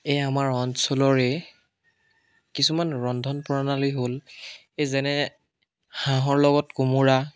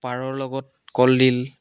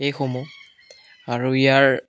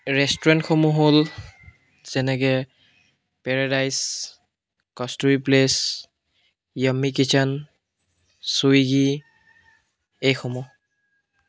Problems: constant background noise, continuous background conversations